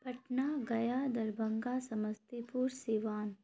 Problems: none marked